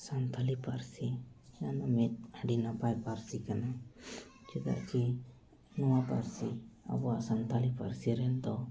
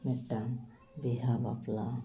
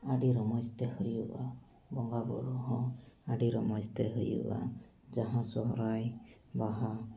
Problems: background conversations at intervals